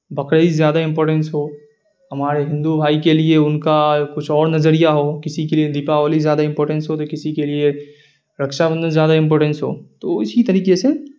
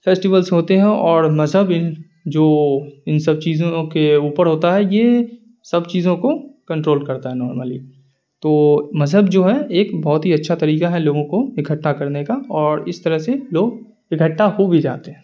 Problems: none marked